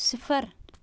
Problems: constant background noise